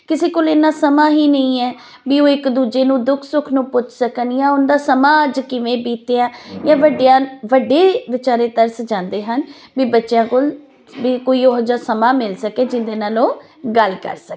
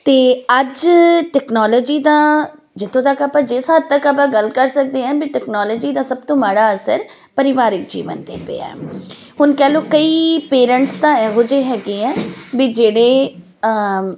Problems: none marked